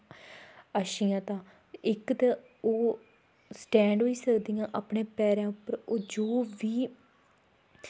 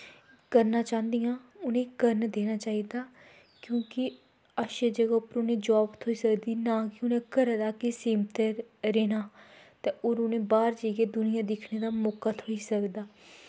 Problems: low volume